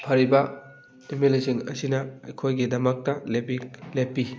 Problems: constant background noise